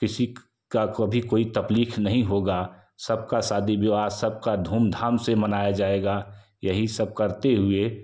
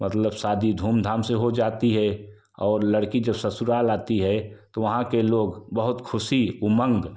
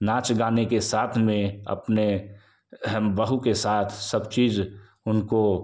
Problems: constant background noise